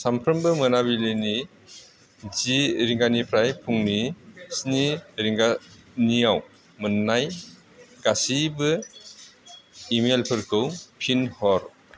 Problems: constant background noise